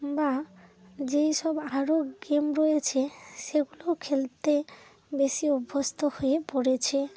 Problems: constant background noise, low volume